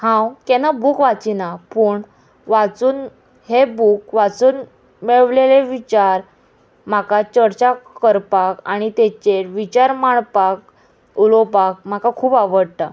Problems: constant background noise